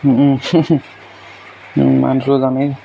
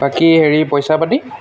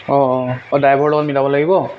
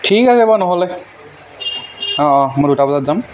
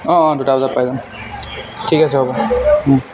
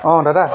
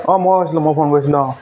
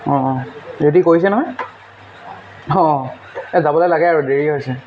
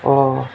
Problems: background sounds at intervals